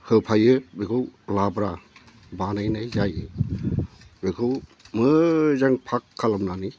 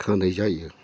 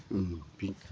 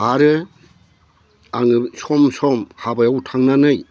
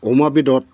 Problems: low volume